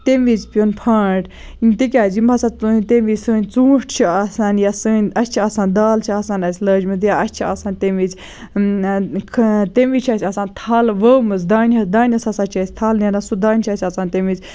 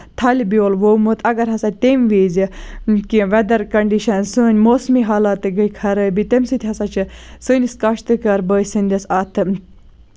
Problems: background sounds at intervals